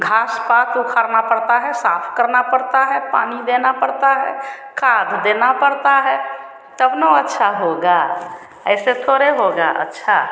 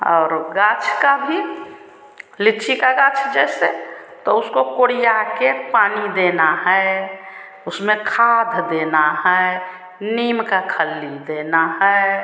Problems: constant background noise